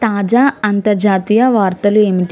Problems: none marked